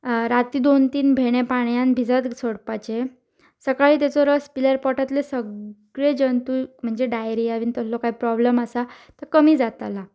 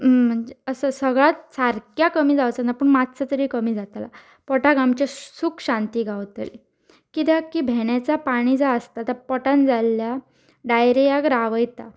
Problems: none marked